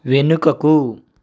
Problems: none marked